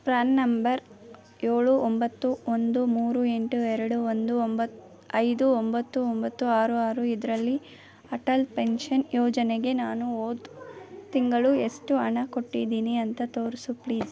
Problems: background sounds at intervals